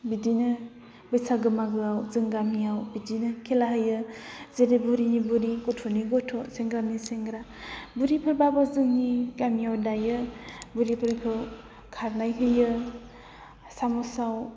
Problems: none marked